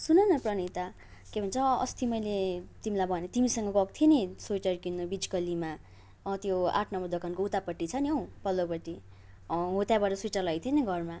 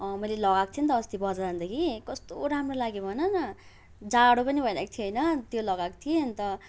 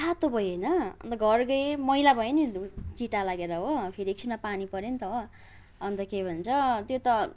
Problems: background sounds at intervals, background conversations at intervals